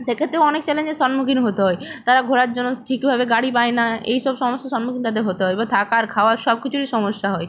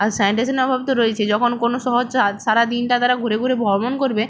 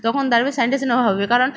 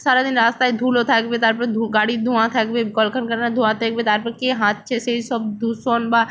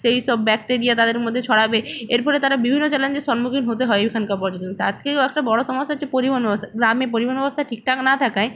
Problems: none marked